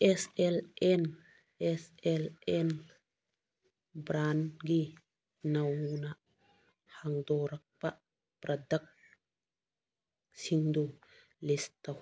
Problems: none marked